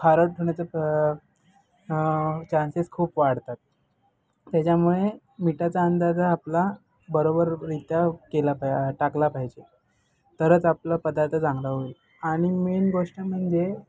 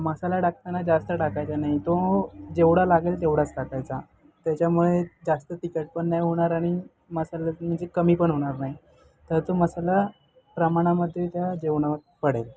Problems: background sounds at intervals